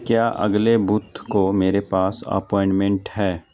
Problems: constant background noise